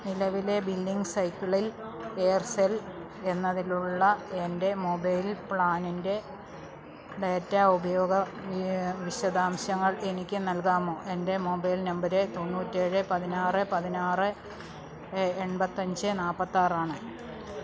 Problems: constant background noise